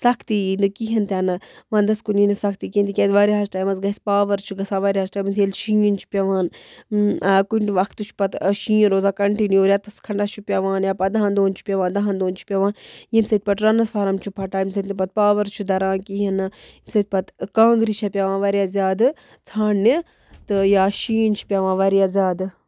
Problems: none marked